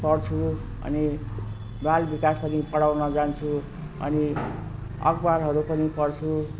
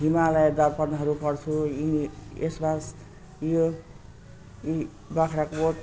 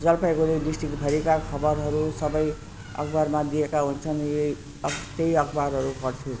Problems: constant background noise